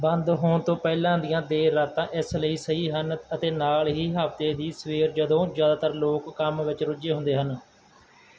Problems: constant background noise